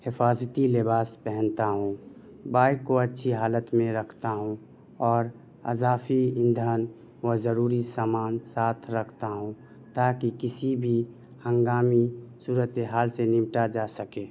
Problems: none marked